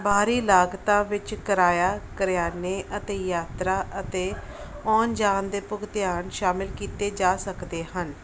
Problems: background sounds at intervals